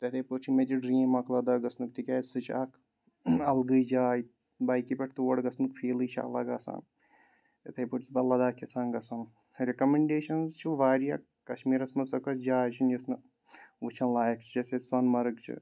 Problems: none marked